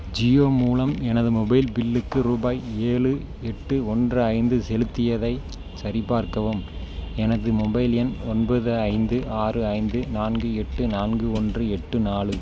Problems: none marked